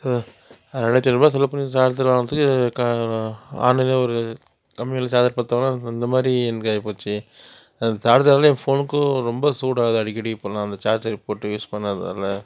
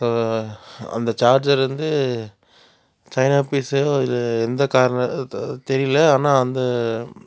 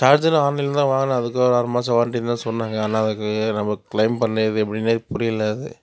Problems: constant background noise